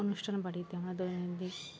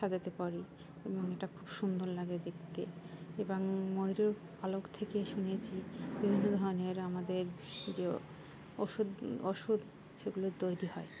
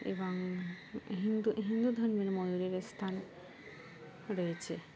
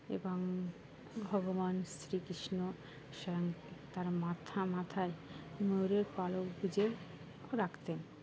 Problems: constant background noise